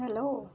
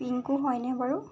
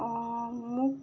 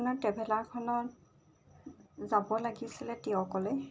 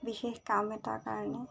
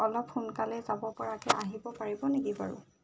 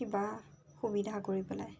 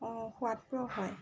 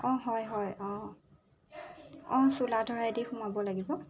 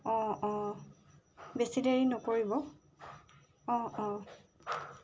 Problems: background sounds at intervals